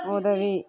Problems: background conversations at intervals